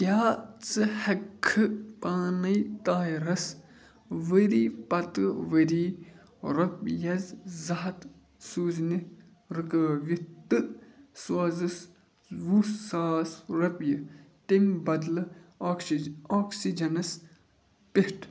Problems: background sounds at intervals